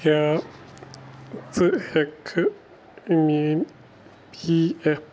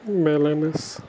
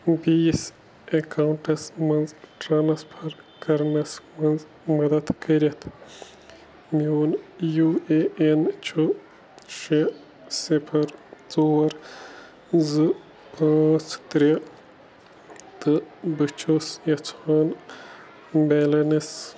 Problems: background sounds at intervals